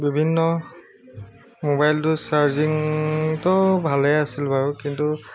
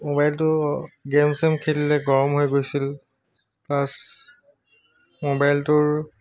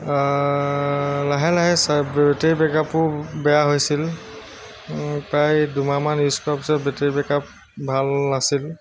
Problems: constant background noise, background conversations at intervals